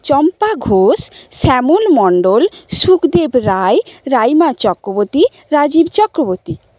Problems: constant background noise